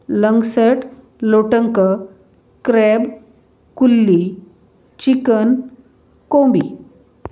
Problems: none marked